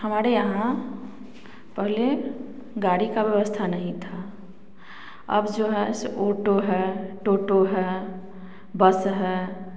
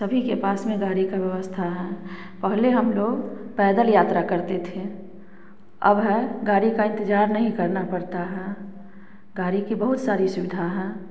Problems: constant background noise